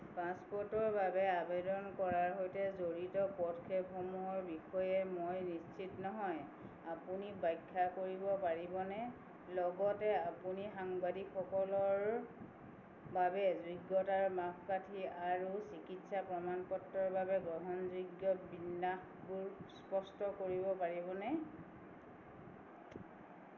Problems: background sounds at intervals